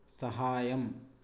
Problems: low volume